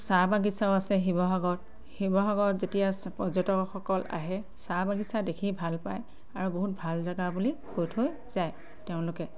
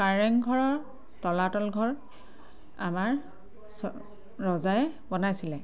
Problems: constant background noise